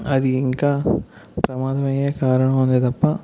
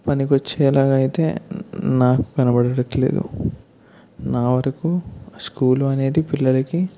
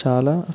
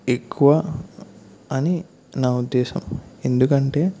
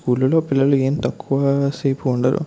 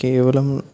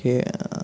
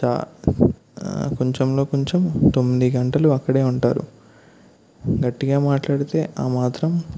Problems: none marked